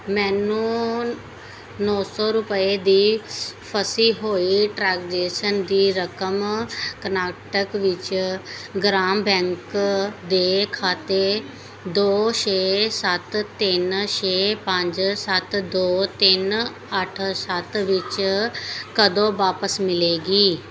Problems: none marked